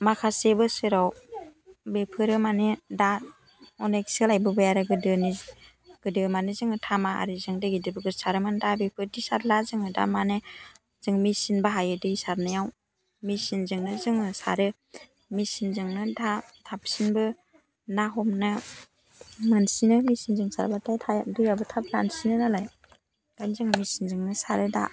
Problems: none marked